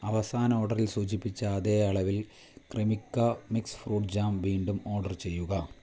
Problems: constant background noise, low volume